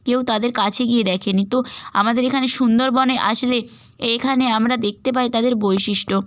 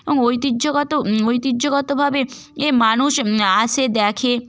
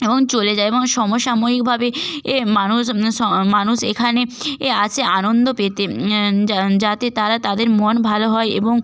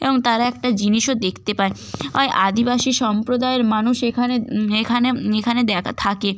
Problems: none marked